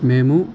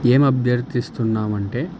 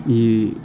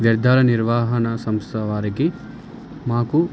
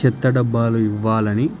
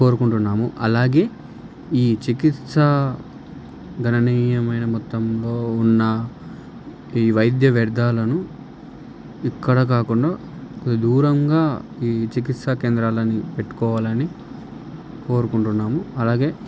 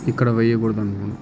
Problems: constant background noise